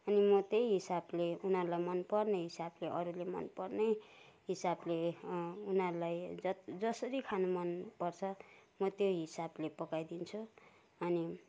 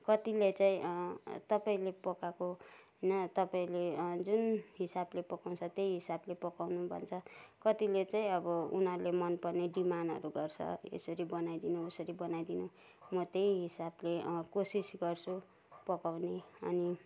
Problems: none marked